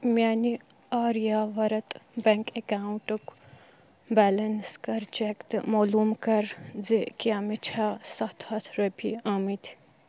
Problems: background sounds at intervals